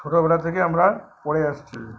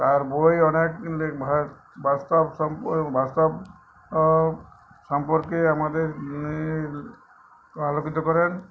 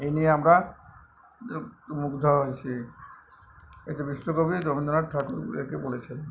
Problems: none marked